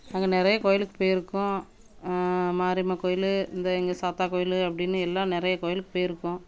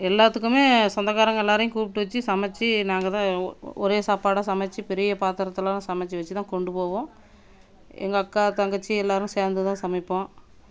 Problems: constant background noise